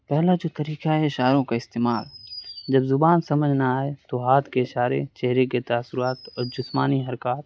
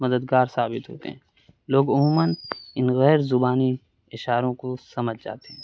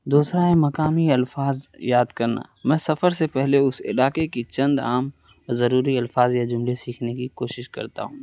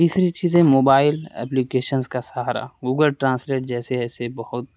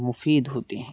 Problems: constant background noise